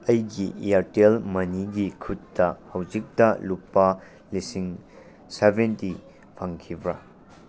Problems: constant background noise